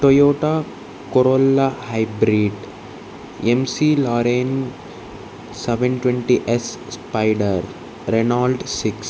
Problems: constant background noise